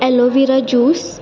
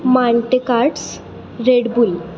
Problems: constant background noise